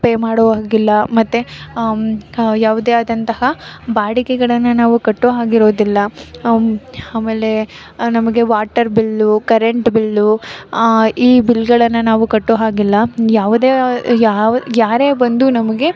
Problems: background sounds at intervals